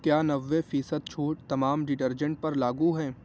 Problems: constant background noise, low volume